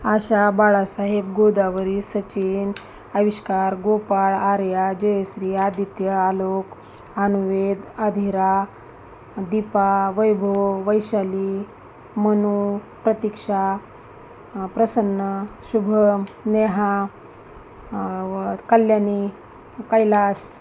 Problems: constant background noise, continuous background conversations